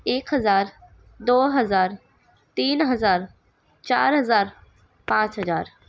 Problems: background sounds at intervals